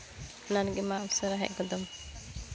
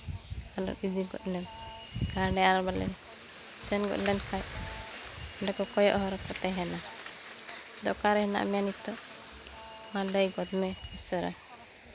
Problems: constant background noise, continuous background conversations